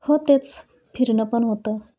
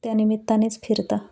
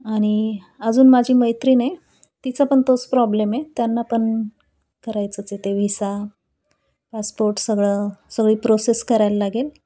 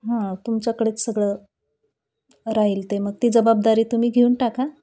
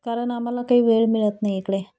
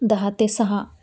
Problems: none marked